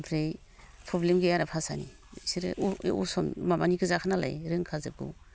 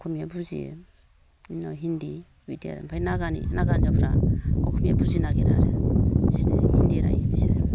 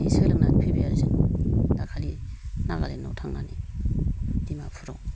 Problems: low volume